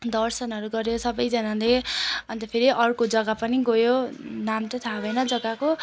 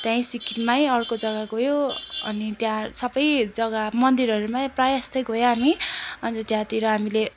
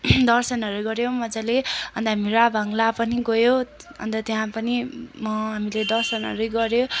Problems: constant background noise